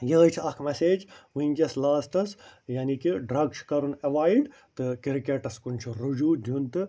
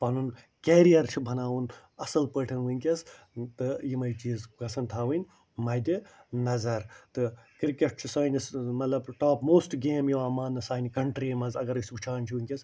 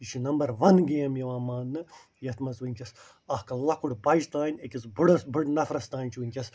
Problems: none marked